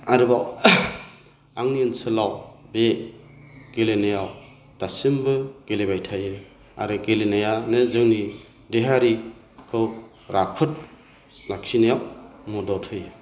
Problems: none marked